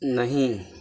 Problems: constant background noise